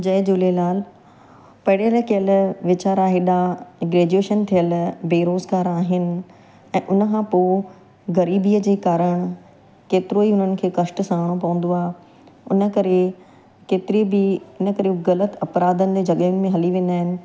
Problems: constant background noise, echo